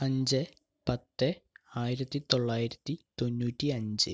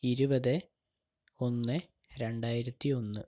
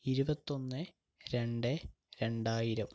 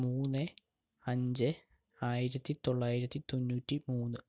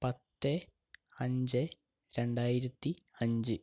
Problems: low volume